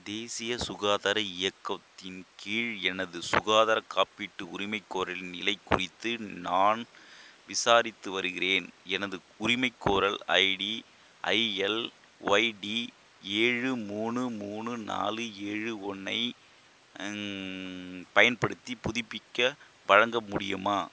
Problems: constant background noise